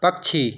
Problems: background sounds at intervals